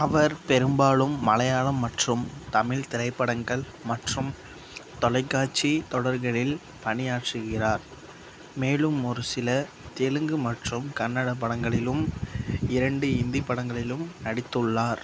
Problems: none marked